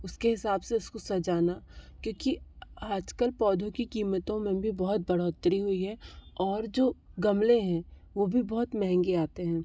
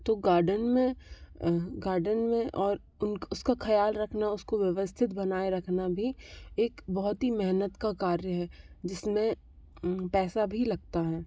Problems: background sounds at intervals